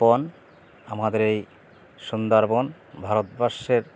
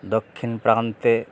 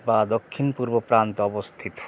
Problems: none marked